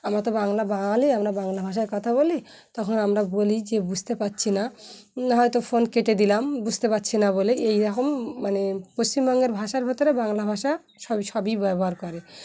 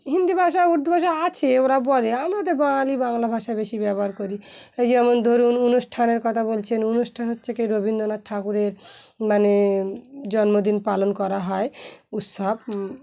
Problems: background sounds at intervals, background conversations at intervals